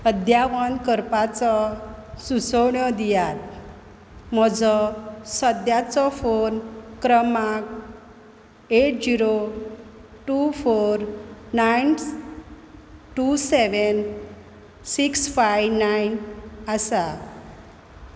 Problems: background sounds at intervals